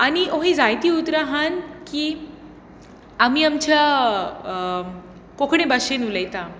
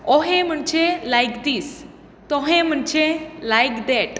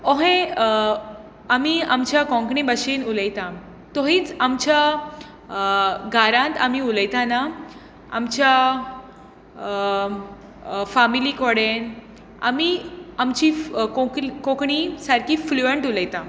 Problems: constant background noise